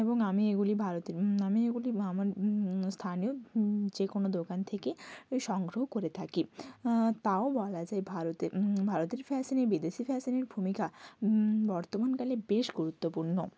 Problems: none marked